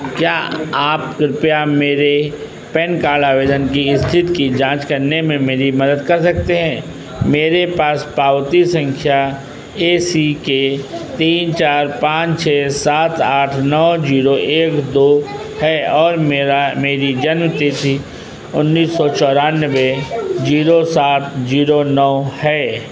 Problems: constant background noise